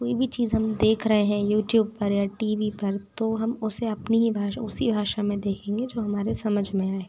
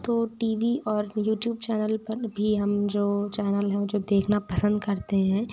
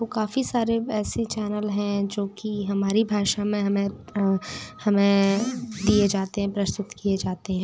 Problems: background sounds at intervals, background conversations at intervals